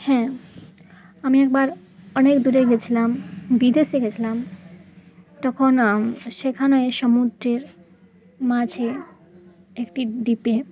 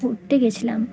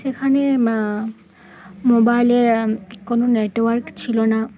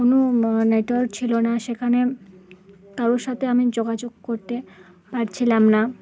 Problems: none marked